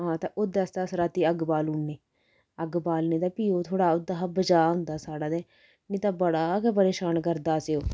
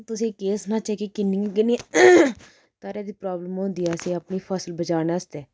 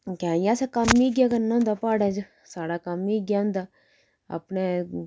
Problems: constant background noise